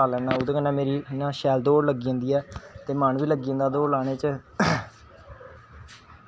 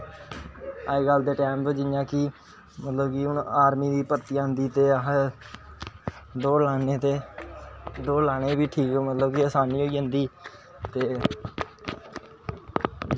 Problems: background sounds at intervals